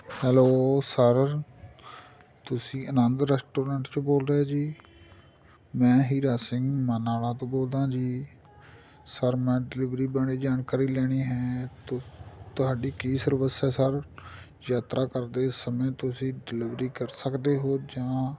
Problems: continuous background conversations